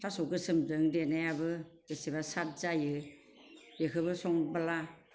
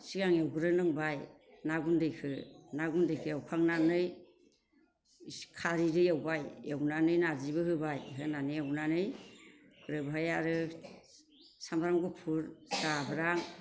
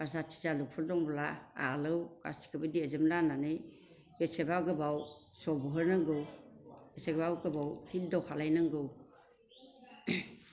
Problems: constant background noise